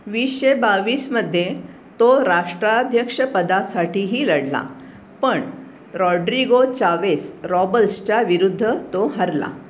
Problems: none marked